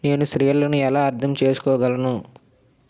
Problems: none marked